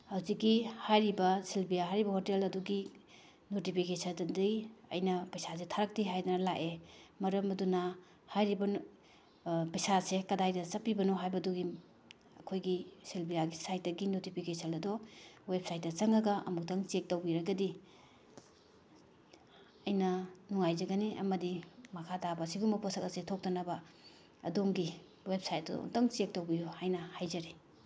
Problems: none marked